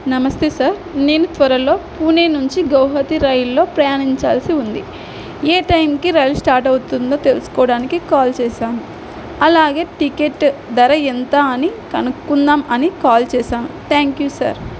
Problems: background sounds at intervals